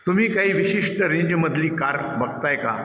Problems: none marked